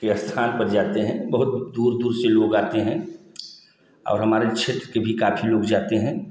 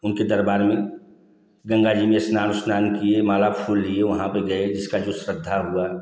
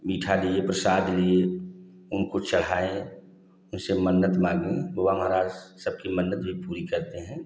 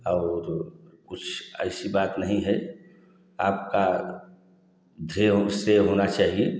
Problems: constant background noise, echo